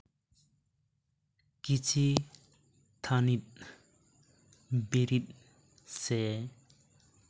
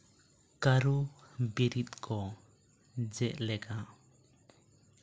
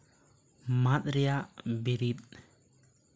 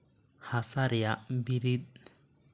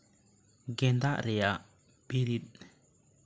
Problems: none marked